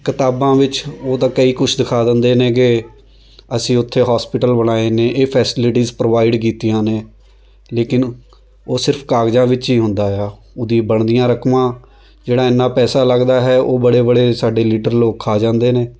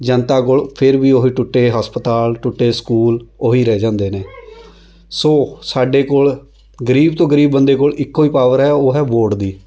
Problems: none marked